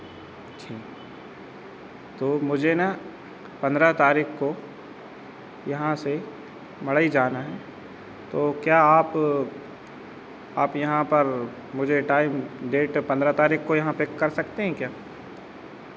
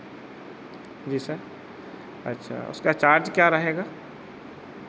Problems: constant background noise